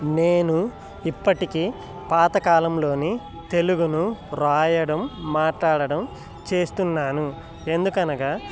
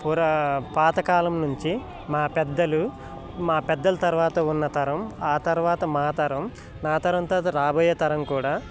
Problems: constant background noise